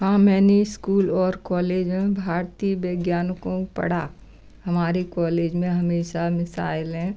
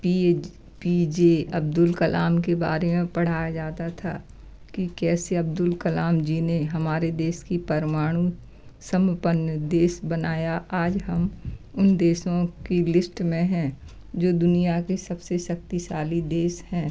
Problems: none marked